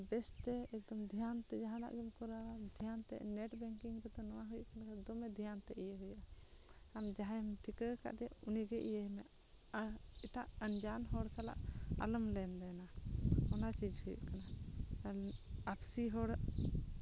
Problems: constant background noise, low volume